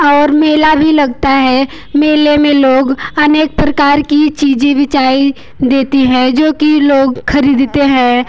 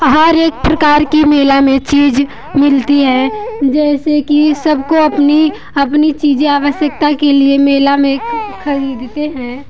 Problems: background sounds at intervals